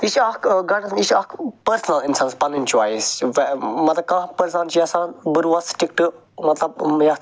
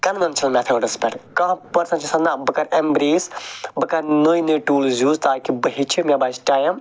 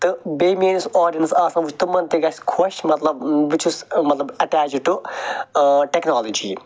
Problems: none marked